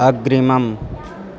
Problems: background sounds at intervals